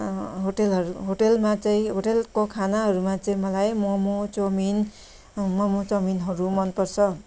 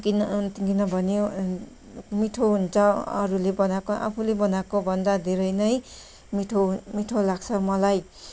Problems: background sounds at intervals